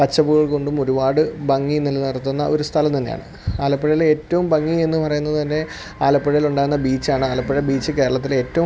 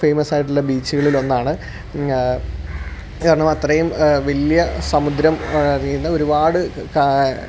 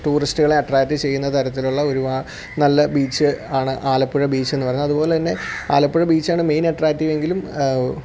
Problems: none marked